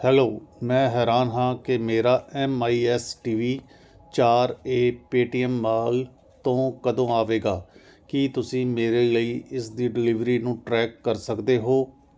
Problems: constant background noise